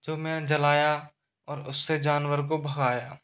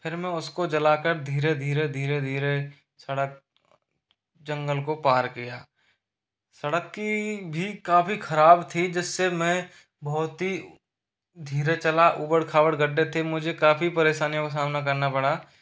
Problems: constant background noise